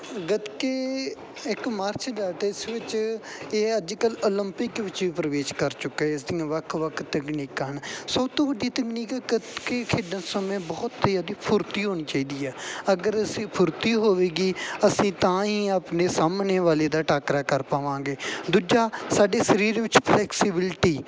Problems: background sounds at intervals